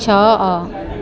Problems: none marked